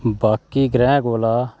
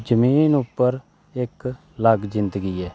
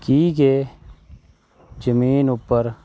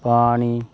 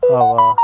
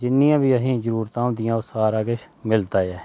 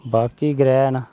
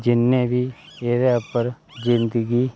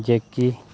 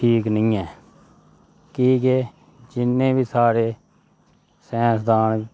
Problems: none marked